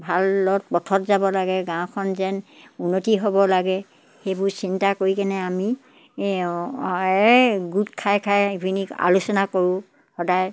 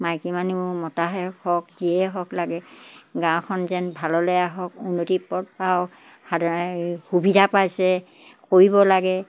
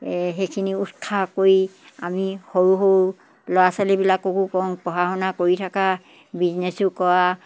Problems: none marked